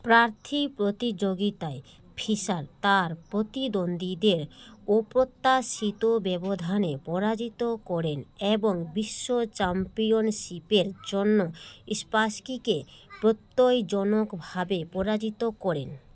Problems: background conversations at intervals